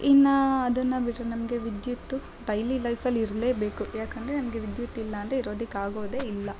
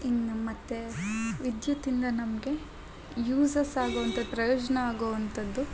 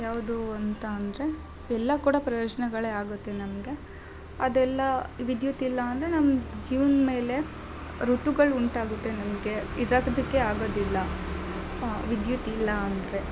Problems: background sounds at intervals